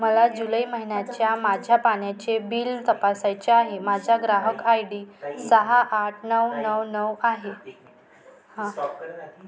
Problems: constant background noise, background conversations at intervals